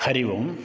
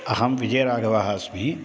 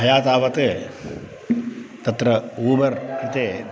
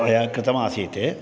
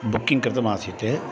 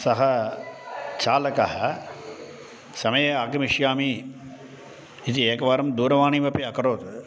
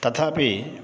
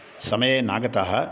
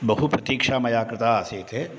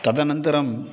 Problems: constant background noise